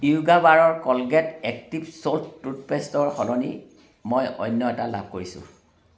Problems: background sounds at intervals